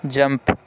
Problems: none marked